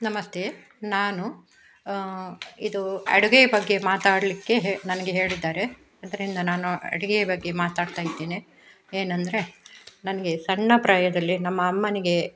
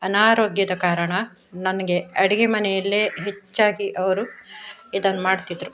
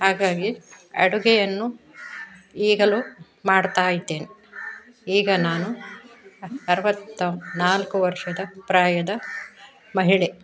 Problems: none marked